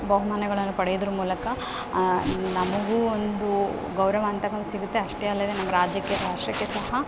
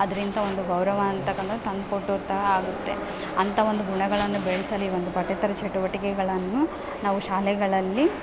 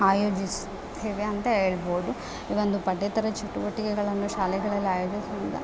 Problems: none marked